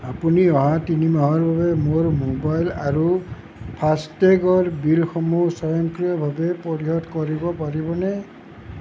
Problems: constant background noise